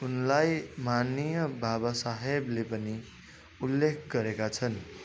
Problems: continuous background conversations